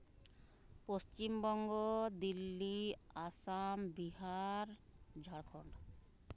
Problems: none marked